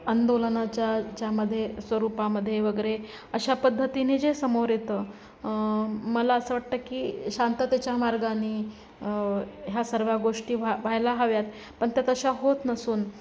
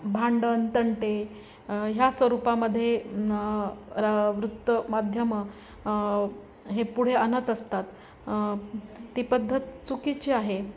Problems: none marked